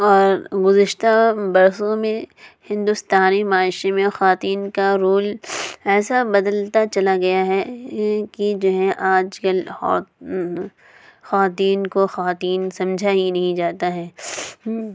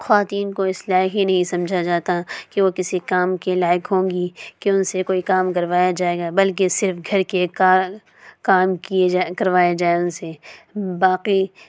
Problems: background sounds at intervals